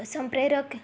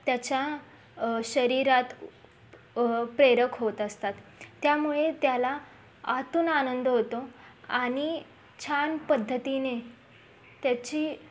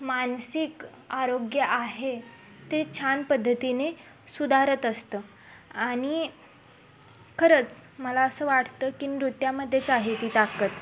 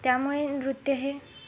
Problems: constant background noise, background conversations at intervals